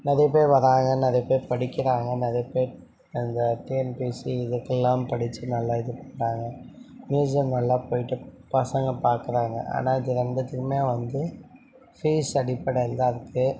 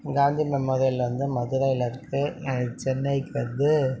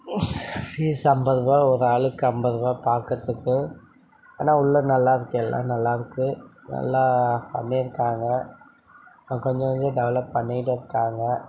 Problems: background conversations at intervals